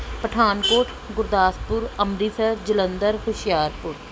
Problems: background sounds at intervals